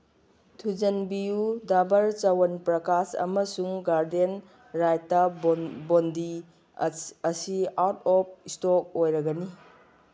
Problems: background sounds at intervals